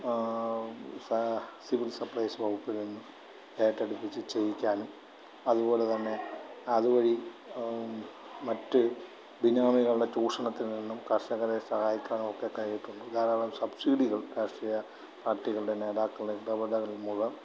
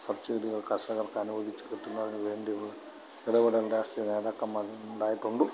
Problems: low volume